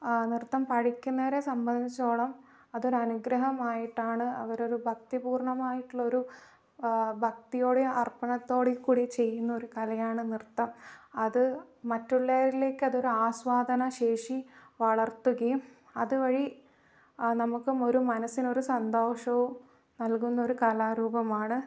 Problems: low volume